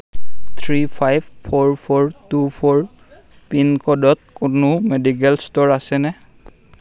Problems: constant background noise